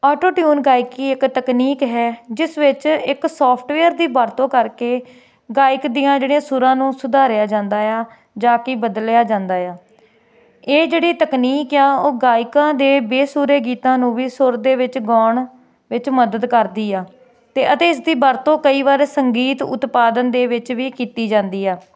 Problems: constant background noise